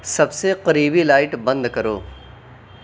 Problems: constant background noise